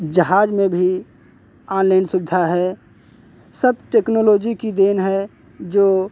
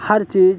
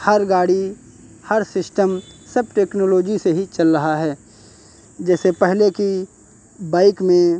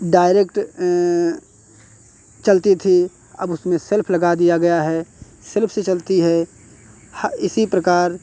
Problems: constant background noise, background conversations at intervals